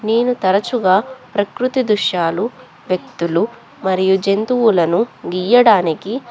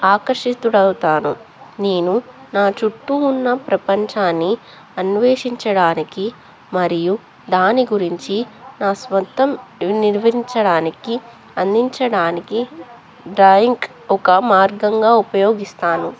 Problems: constant background noise, background conversations at intervals